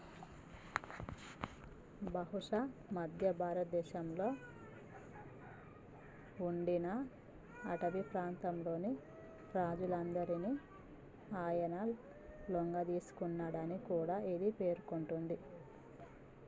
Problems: low volume